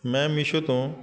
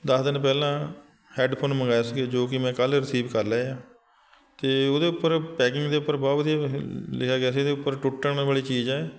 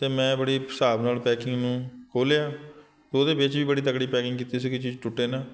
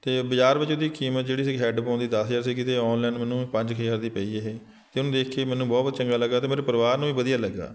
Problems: continuous background conversations